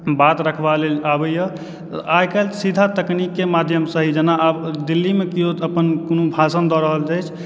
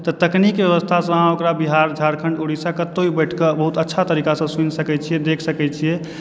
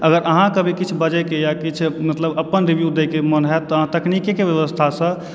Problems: none marked